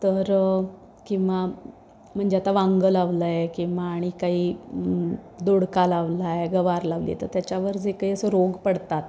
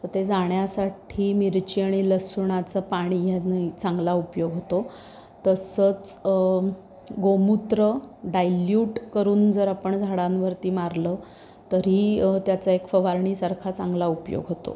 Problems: none marked